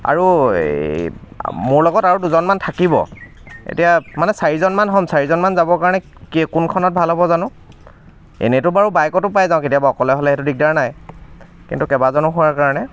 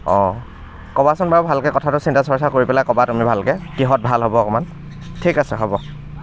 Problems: constant background noise, background conversations at intervals